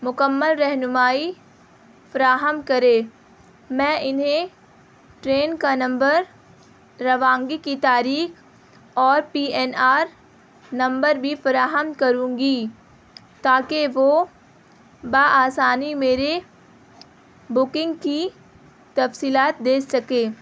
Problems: constant background noise